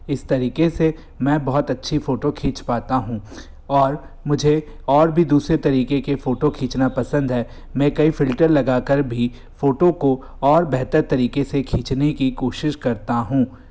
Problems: none marked